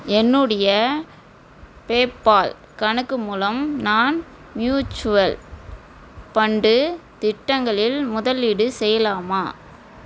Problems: constant background noise